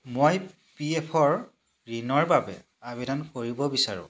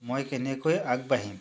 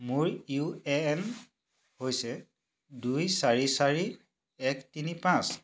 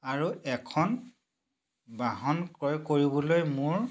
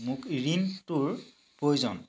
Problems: none marked